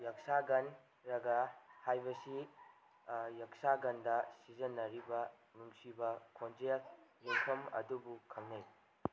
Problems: background sounds at intervals